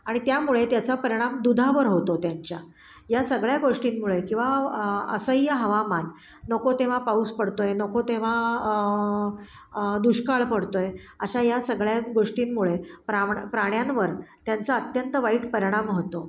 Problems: background sounds at intervals